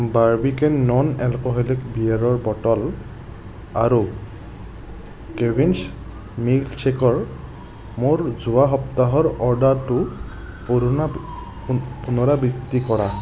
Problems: constant background noise